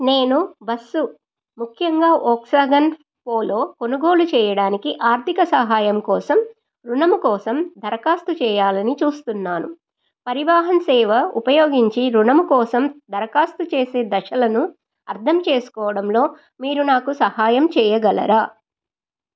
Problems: none marked